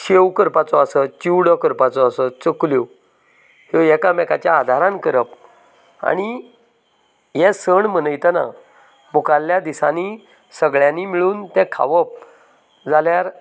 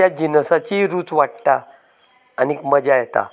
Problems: constant background noise, background conversations at intervals